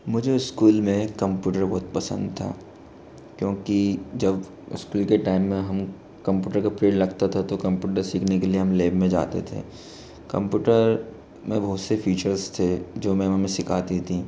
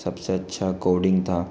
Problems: constant background noise